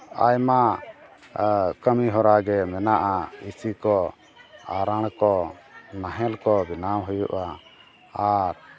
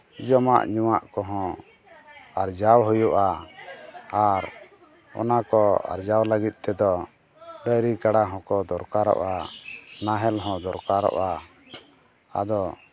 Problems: background conversations at intervals